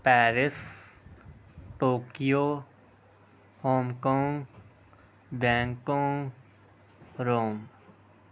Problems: none marked